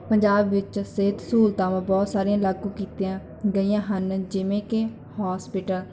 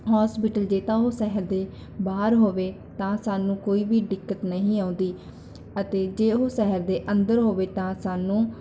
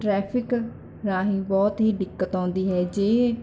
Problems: background conversations at intervals